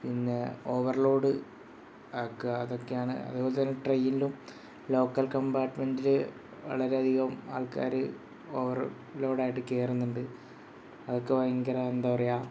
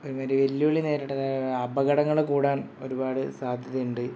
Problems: none marked